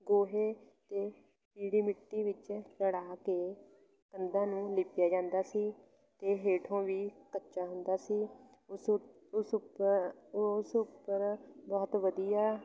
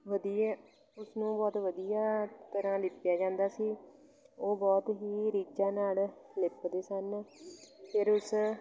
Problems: constant background noise, continuous background conversations